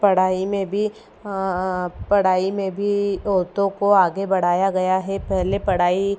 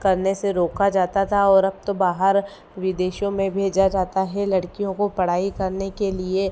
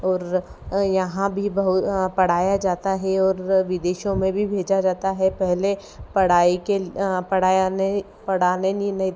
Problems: none marked